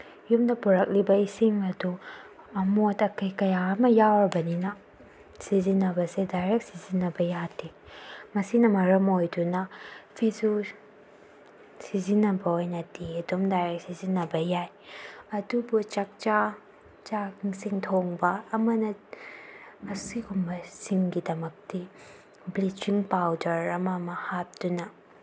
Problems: low volume